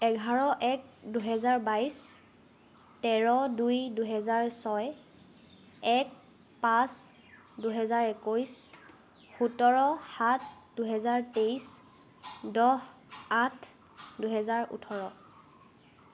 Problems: constant background noise